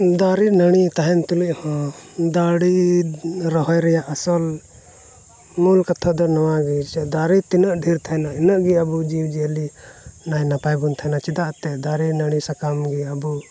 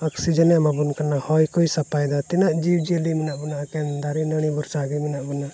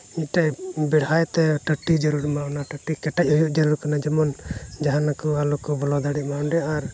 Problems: none marked